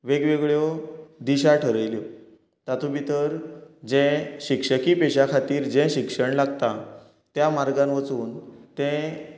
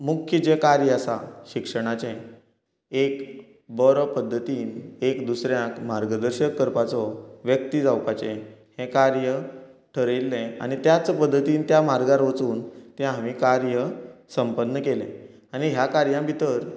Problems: continuous background conversations